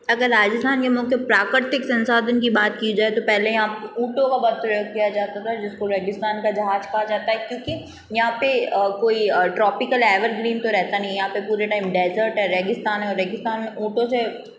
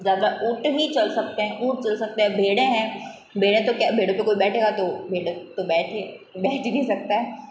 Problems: background sounds at intervals